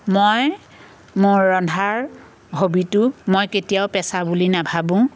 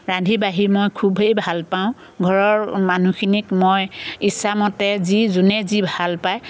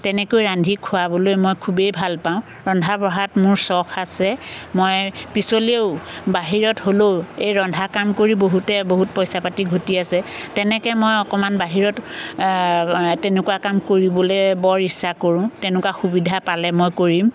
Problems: constant background noise